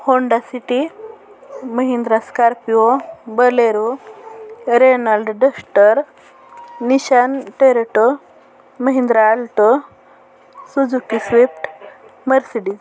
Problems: constant background noise, continuous background conversations